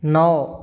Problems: none marked